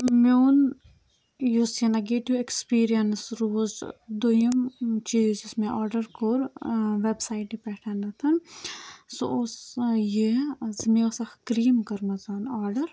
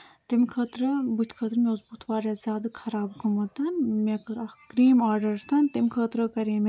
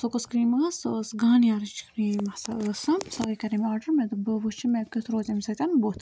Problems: none marked